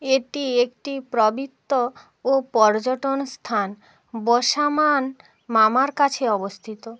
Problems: constant background noise